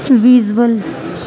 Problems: constant background noise, low volume